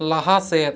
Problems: echo